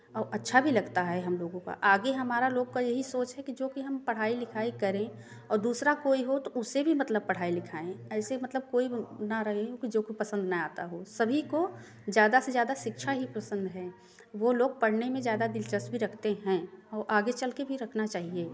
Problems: constant background noise